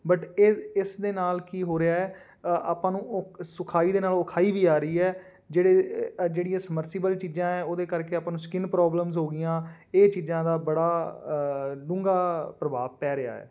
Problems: none marked